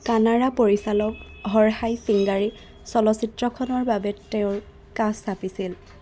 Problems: constant background noise, background conversations at intervals